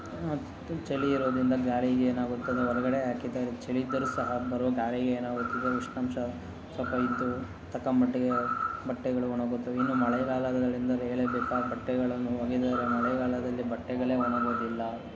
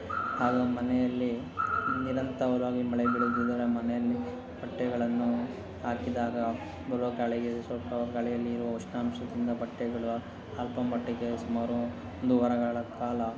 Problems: constant background noise, background conversations at intervals